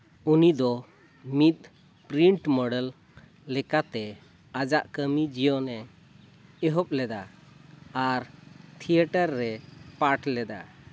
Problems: constant background noise